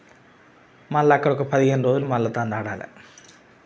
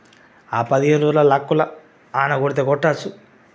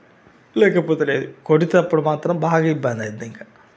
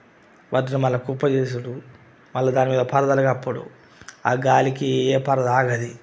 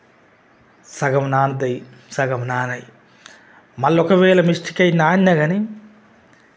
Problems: constant background noise